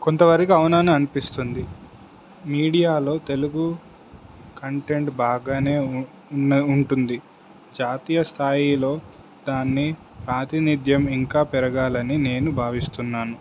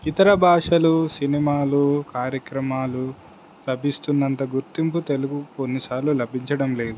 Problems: constant background noise